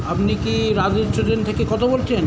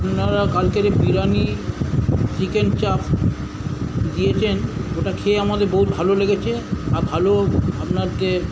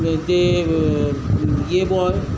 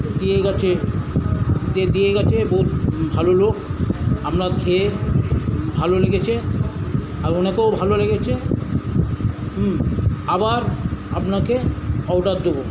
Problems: constant background noise